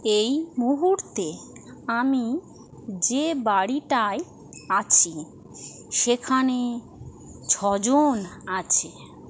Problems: constant background noise